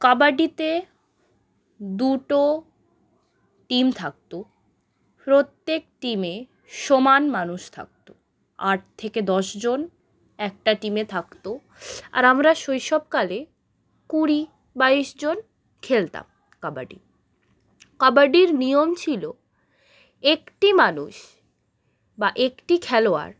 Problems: none marked